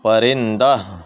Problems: none marked